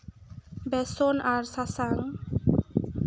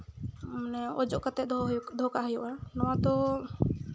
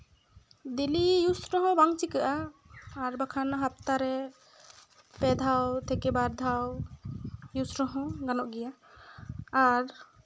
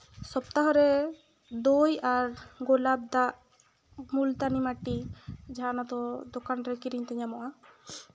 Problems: background sounds at intervals